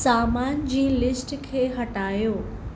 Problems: constant background noise